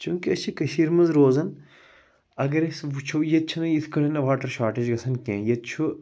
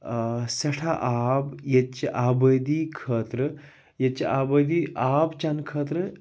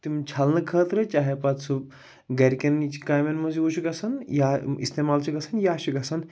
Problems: background sounds at intervals